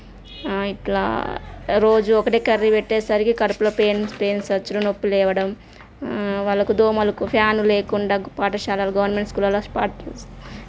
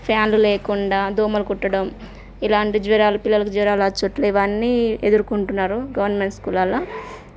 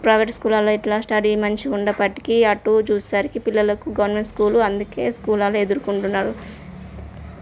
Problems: none marked